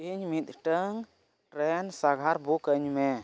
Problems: none marked